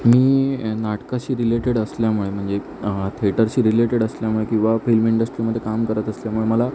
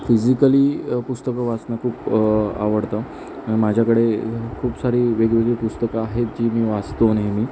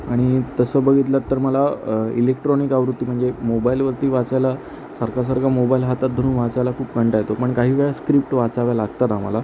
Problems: constant background noise